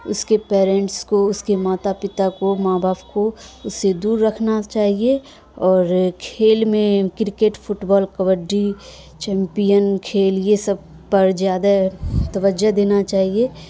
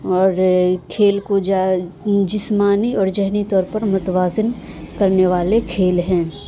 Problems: constant background noise